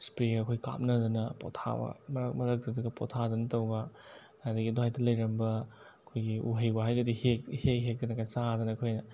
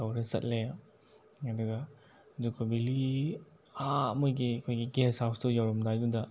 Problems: none marked